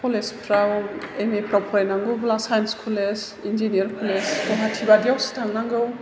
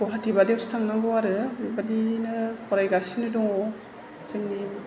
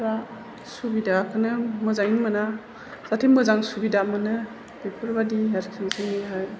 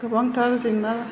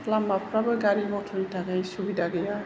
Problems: background sounds at intervals, background conversations at intervals